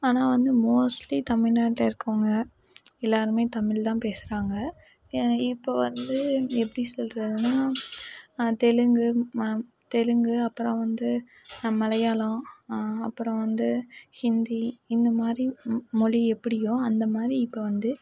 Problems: none marked